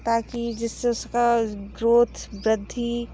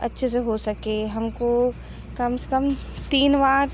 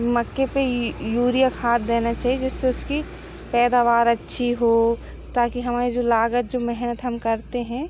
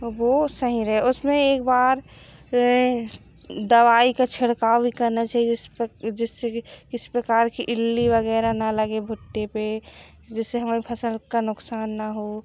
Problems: background sounds at intervals